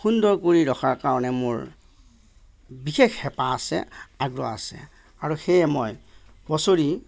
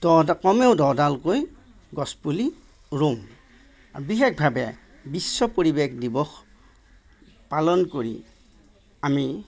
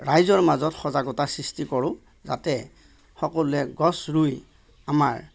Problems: none marked